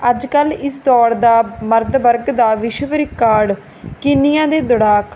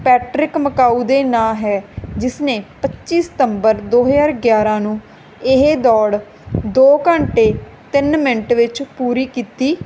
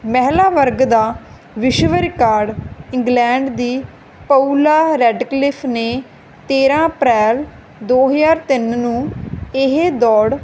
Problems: background sounds at intervals